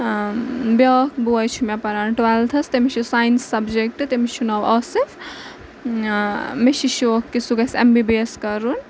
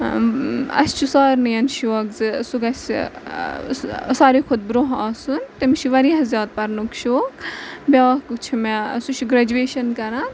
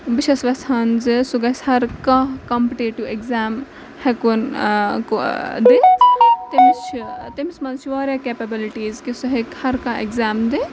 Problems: constant background noise, background conversations at intervals